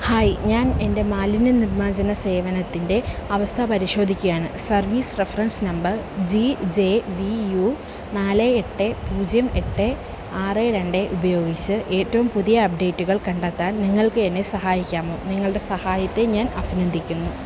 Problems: constant background noise